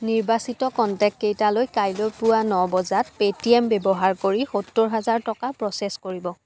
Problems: background sounds at intervals